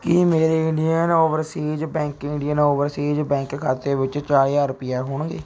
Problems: background sounds at intervals